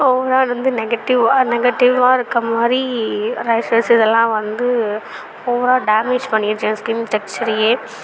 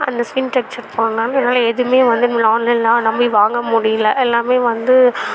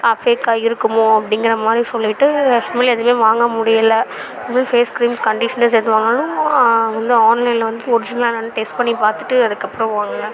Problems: background sounds at intervals, background conversations at intervals